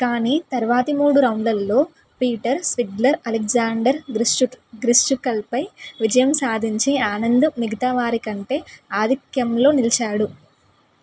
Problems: none marked